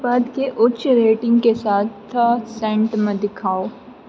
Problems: low volume